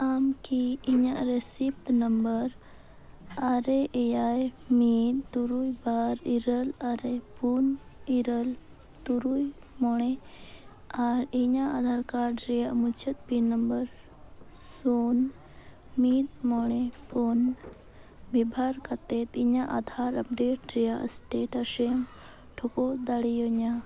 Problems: constant background noise